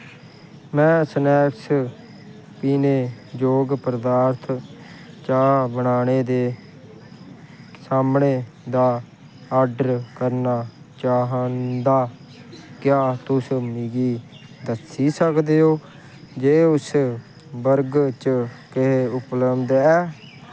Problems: constant background noise